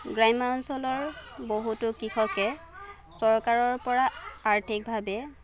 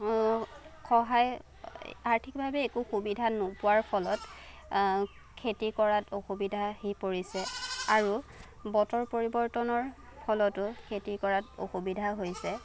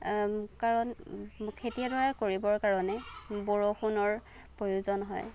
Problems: none marked